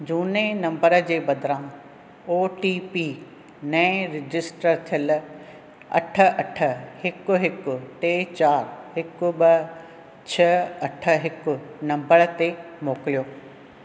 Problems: none marked